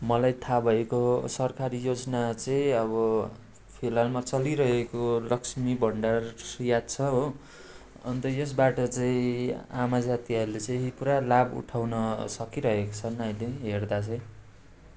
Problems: constant background noise